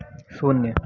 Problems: background sounds at intervals